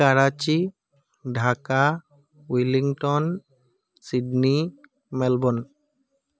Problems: background sounds at intervals